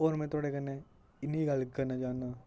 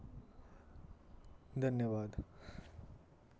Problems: none marked